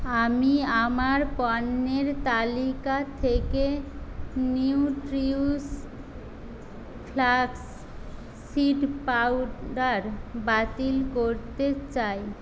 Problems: constant background noise